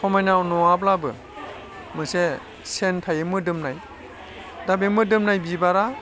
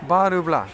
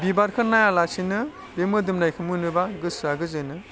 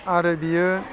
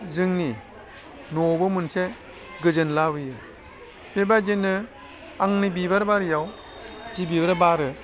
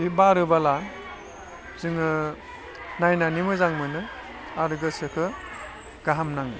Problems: constant background noise, low volume